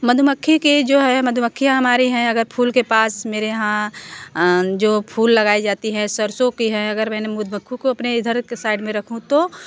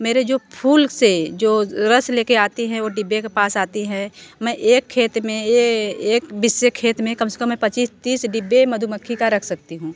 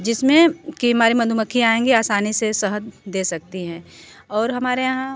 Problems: none marked